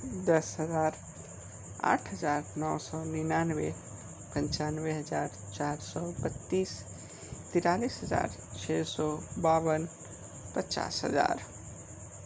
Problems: constant background noise